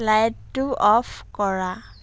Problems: constant background noise